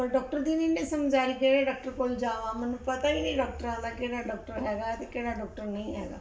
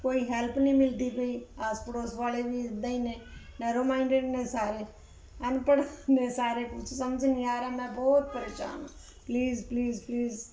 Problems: background sounds at intervals